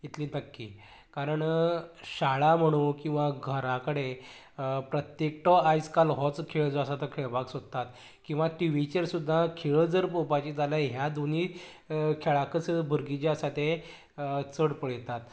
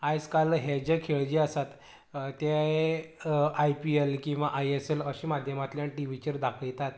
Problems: low volume